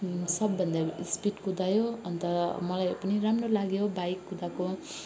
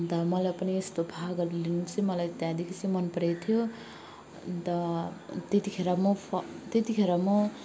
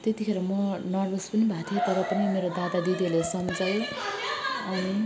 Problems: background sounds at intervals, continuous background conversations